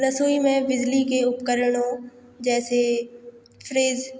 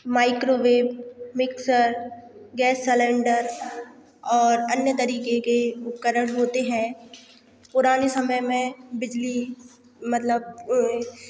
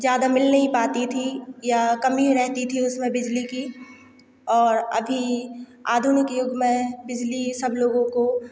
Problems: none marked